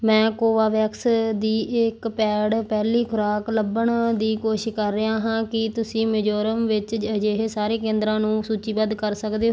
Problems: background sounds at intervals